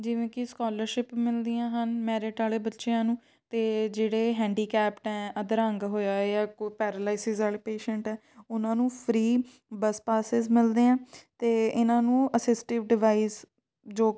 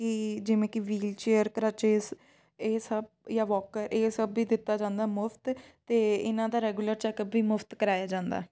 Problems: background sounds at intervals